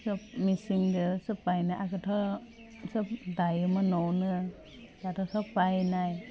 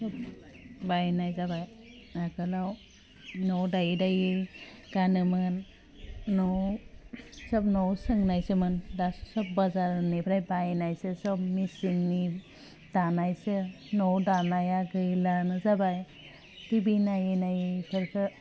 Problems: none marked